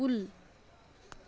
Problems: none marked